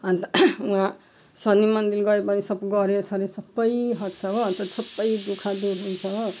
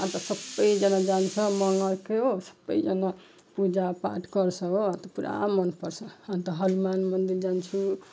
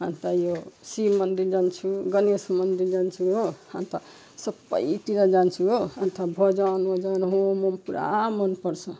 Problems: background sounds at intervals